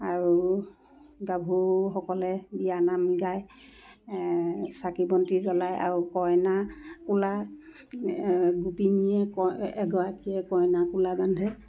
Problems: none marked